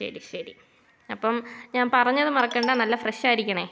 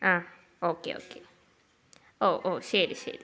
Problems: low volume